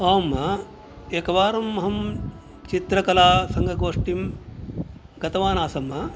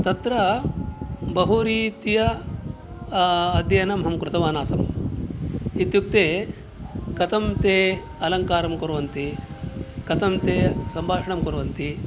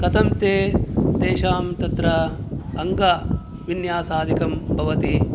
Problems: background sounds at intervals